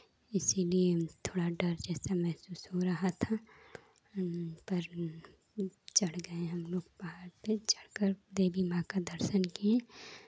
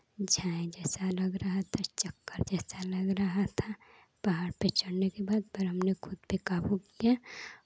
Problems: constant background noise